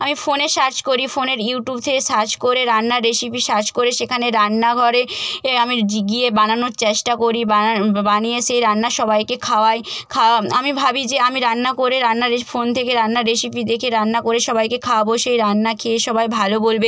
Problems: none marked